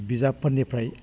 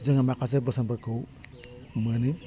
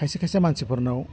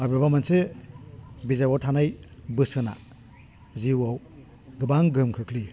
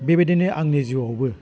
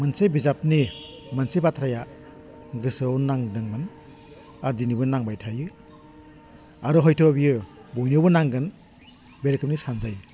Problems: low volume